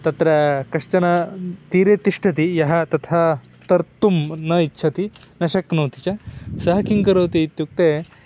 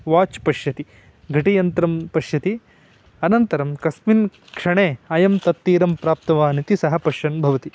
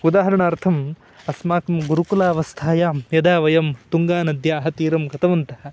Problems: background sounds at intervals